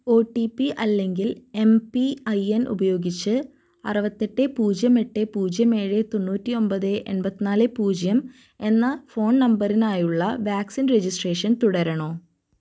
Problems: none marked